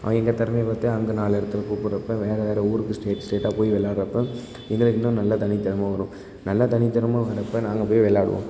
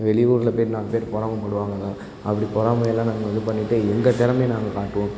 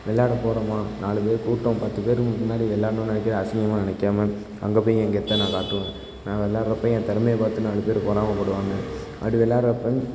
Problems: constant background noise